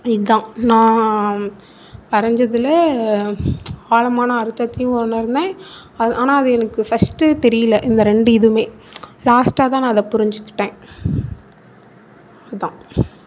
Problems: none marked